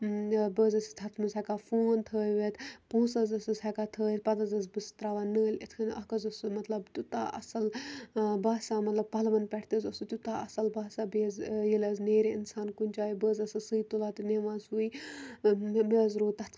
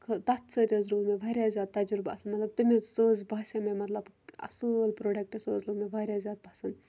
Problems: constant background noise